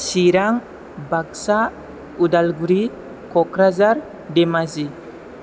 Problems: constant background noise